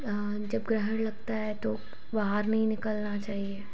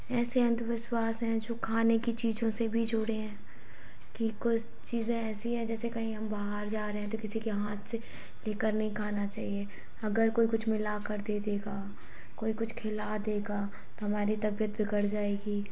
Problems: none marked